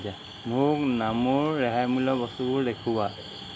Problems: constant background noise, background conversations at intervals